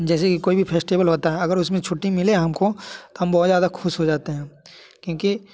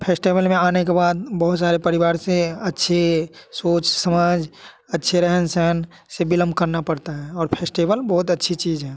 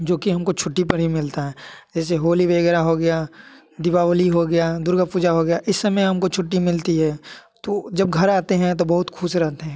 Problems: constant background noise